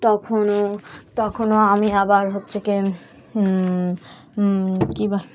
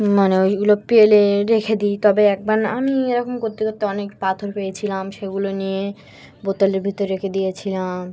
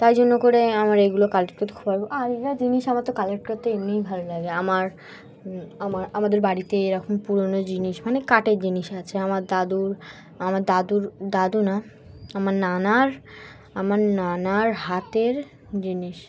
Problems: background sounds at intervals, background conversations at intervals